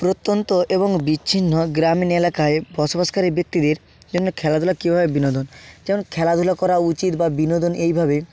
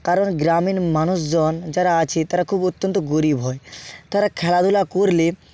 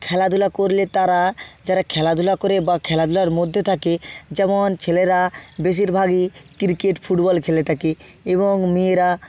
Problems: background sounds at intervals